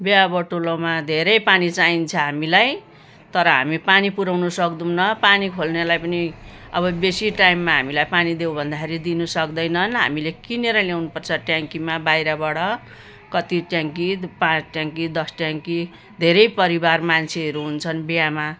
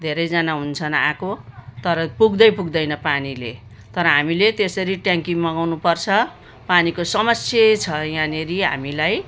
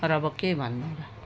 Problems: background sounds at intervals